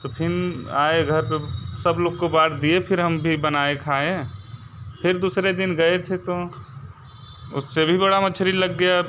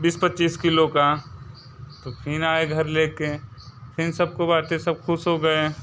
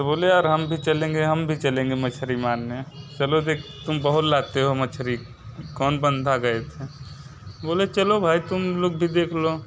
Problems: constant background noise